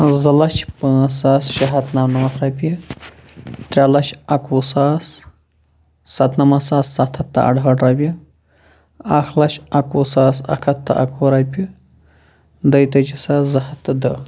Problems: none marked